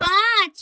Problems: none marked